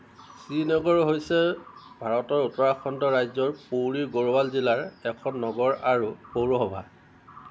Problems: constant background noise